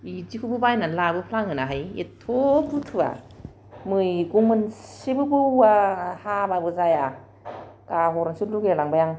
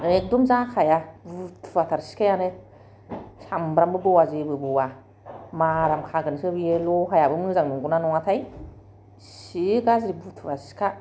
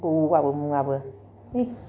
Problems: none marked